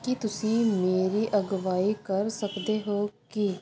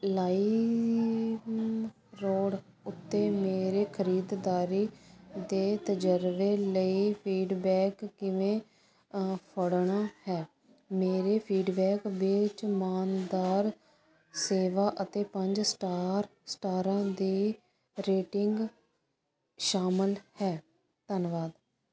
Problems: constant background noise